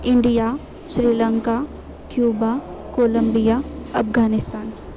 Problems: constant background noise